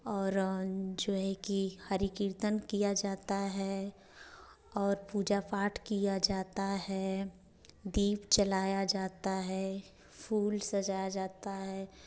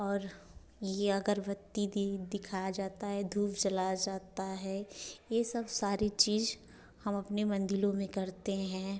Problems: none marked